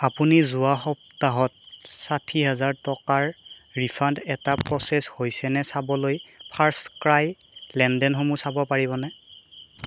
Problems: constant background noise